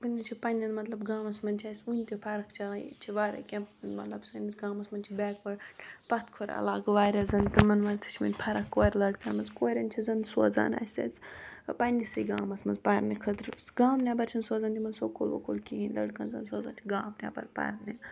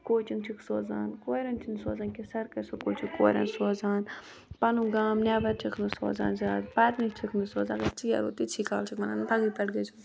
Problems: continuous background conversations